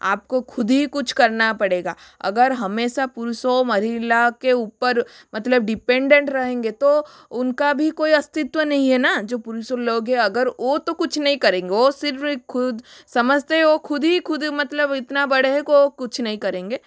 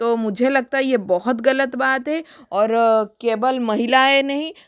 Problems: constant background noise